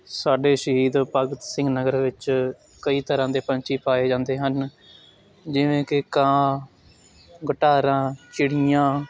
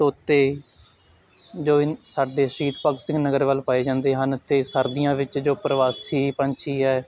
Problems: constant background noise